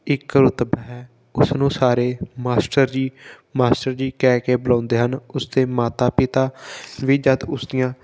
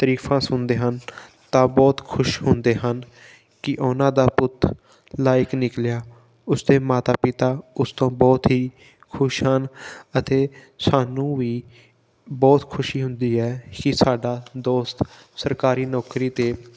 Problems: background sounds at intervals